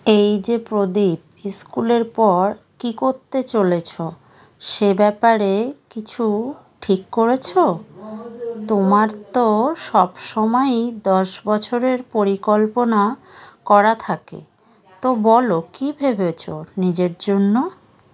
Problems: background sounds at intervals